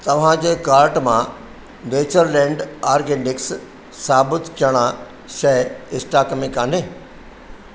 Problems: constant background noise, echo